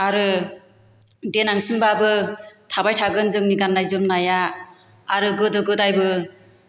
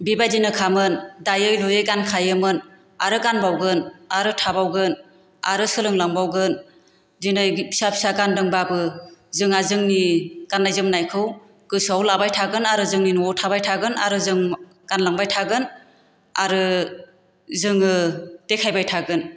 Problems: none marked